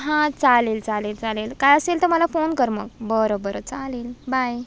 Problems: none marked